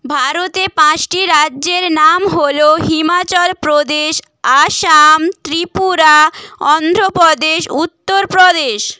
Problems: none marked